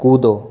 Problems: none marked